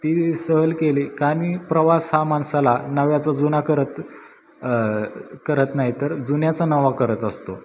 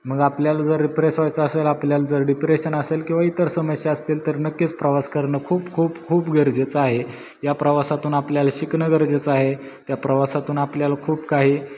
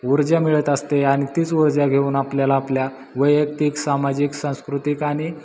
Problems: constant background noise